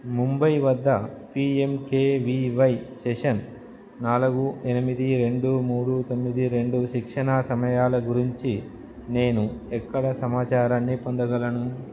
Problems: none marked